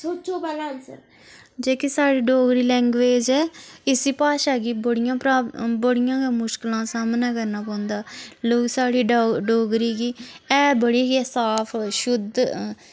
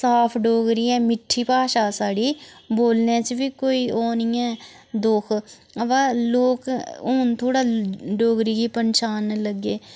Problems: none marked